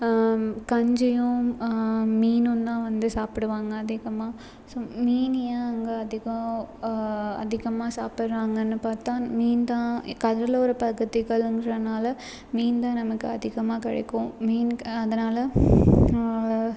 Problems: background sounds at intervals